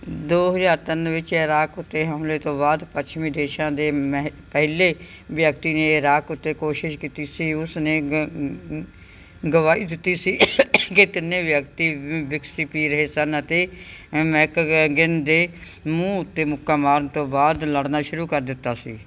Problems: none marked